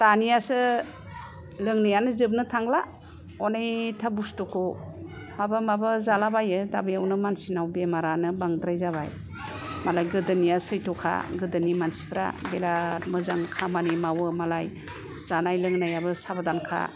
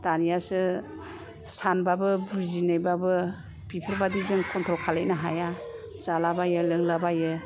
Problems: none marked